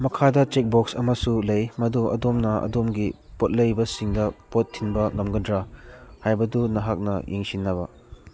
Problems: none marked